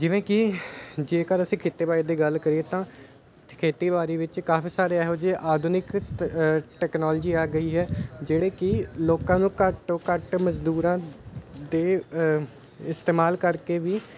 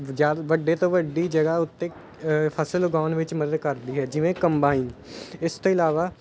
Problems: constant background noise